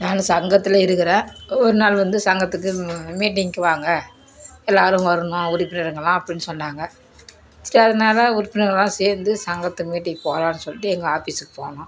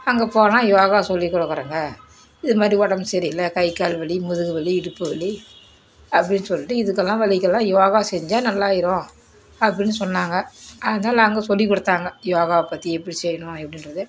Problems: constant background noise